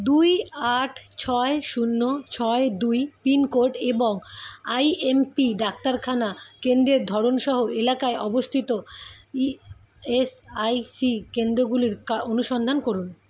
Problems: constant background noise